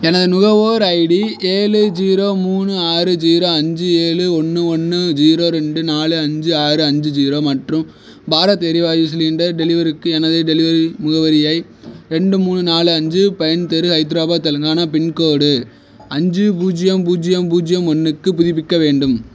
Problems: none marked